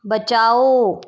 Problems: none marked